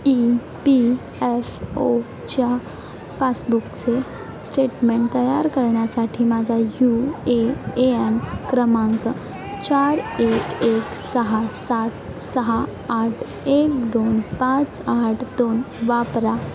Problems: constant background noise, background conversations at intervals